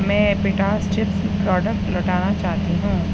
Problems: constant background noise, low volume